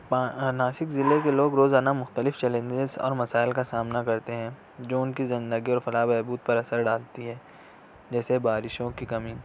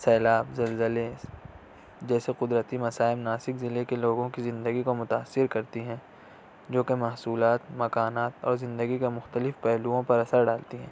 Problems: constant background noise